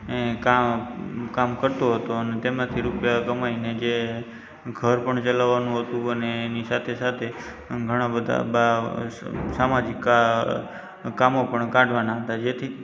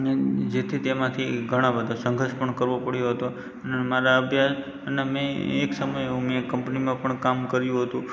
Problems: constant background noise